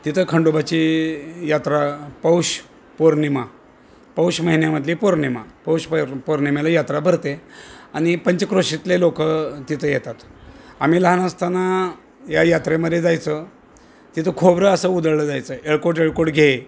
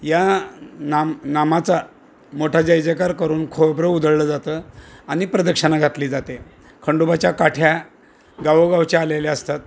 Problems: constant background noise